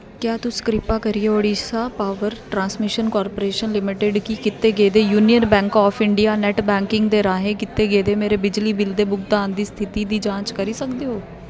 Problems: constant background noise